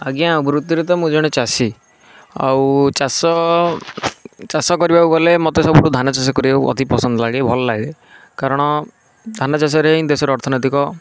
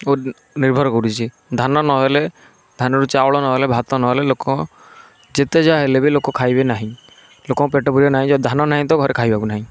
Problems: none marked